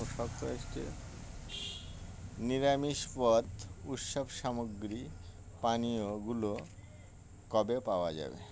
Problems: constant background noise